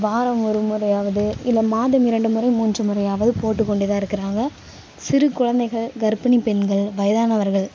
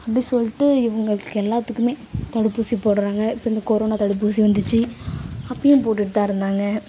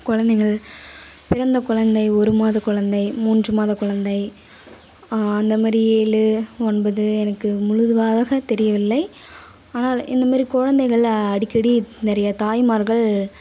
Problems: constant background noise, background conversations at intervals